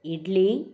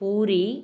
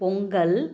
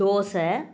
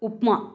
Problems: background sounds at intervals